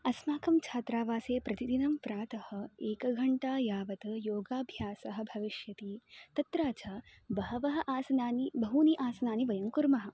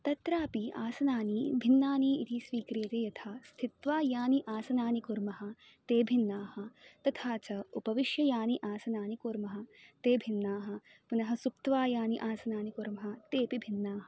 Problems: constant background noise